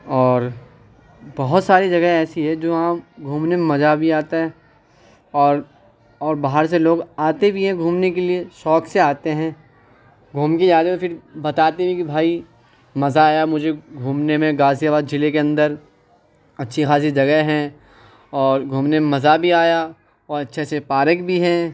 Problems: background conversations at intervals